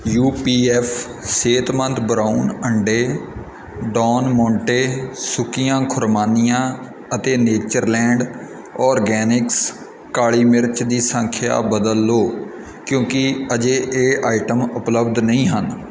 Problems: background sounds at intervals